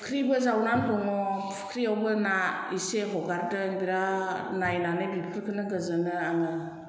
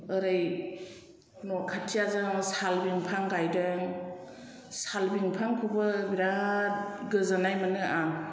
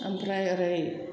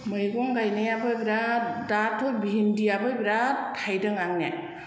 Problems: none marked